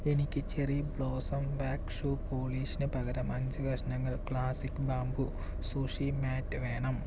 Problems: background sounds at intervals, low volume